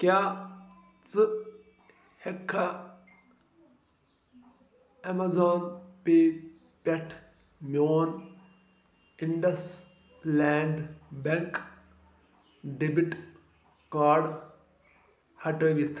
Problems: low volume